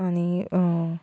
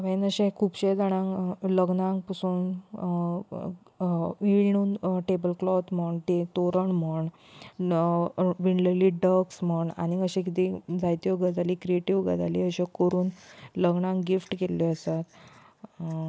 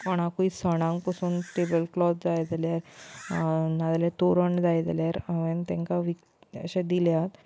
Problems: constant background noise, background conversations at intervals